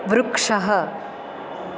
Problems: constant background noise